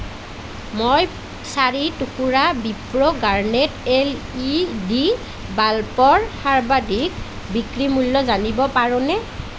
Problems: none marked